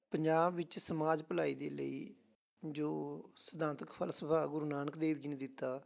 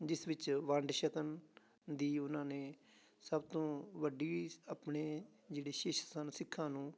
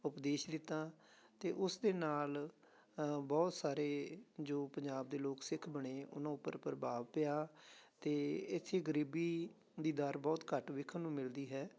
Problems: none marked